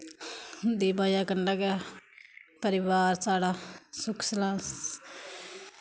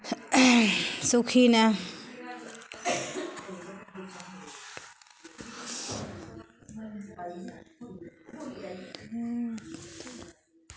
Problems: constant background noise